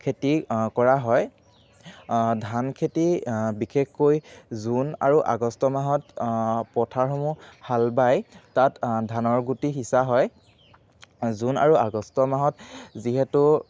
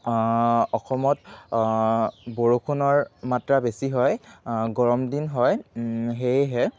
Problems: background sounds at intervals